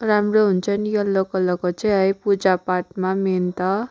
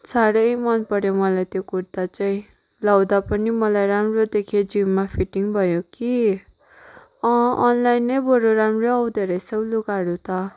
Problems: background sounds at intervals, background conversations at intervals